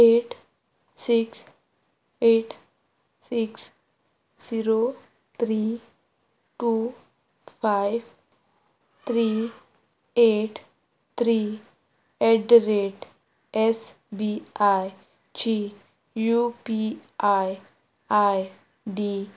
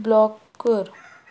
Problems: background sounds at intervals